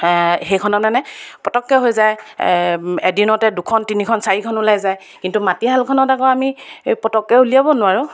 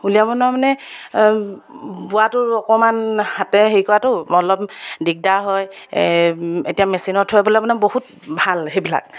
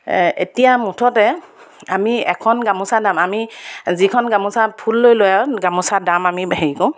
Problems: none marked